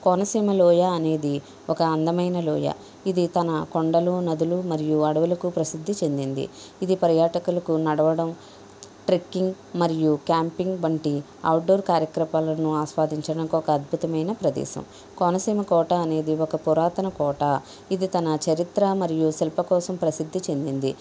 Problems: none marked